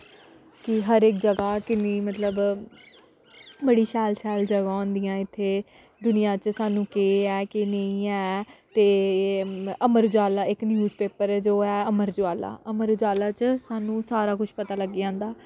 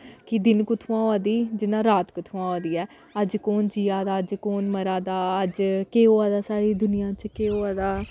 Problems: none marked